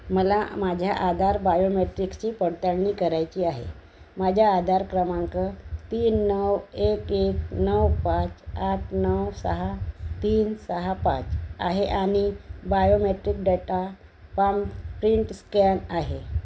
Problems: none marked